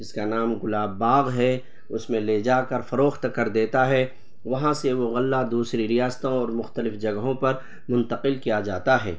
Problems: constant background noise